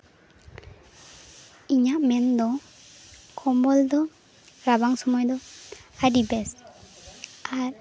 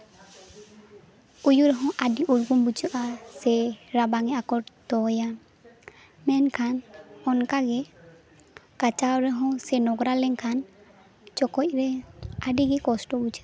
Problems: constant background noise